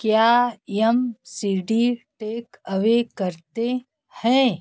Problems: background sounds at intervals